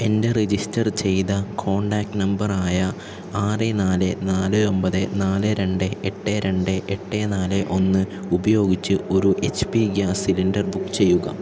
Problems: constant background noise, low volume